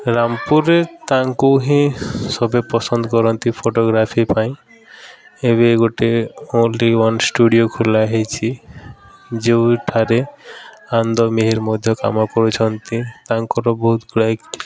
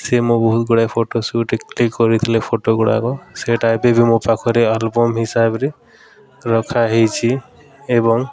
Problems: constant background noise, continuous background conversations